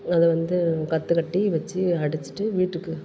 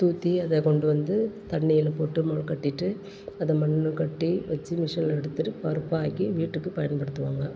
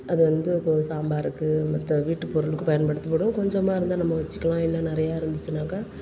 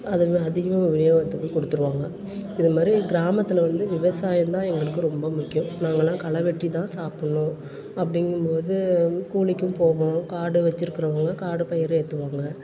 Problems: constant background noise, continuous background conversations